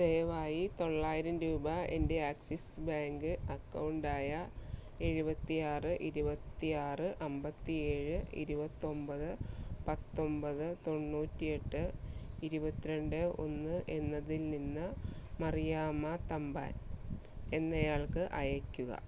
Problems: background sounds at intervals